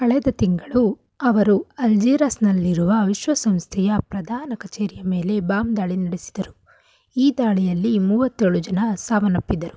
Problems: none marked